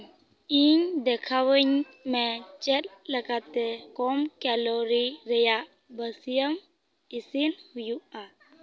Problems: constant background noise